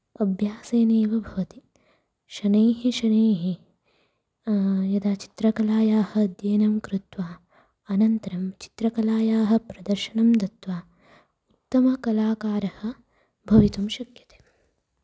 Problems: low volume